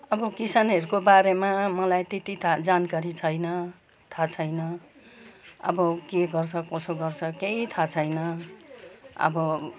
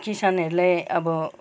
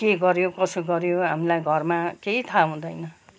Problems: background sounds at intervals, background conversations at intervals